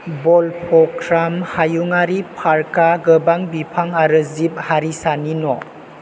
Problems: constant background noise